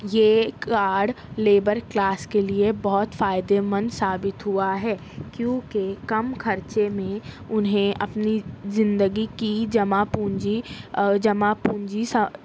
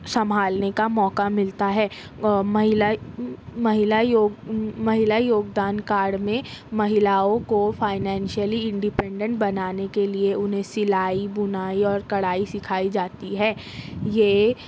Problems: none marked